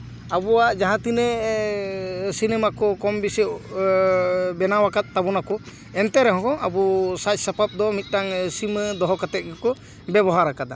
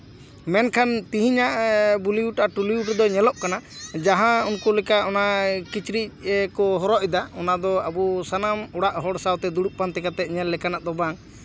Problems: background conversations at intervals